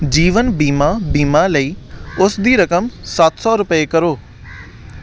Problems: constant background noise